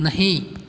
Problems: none marked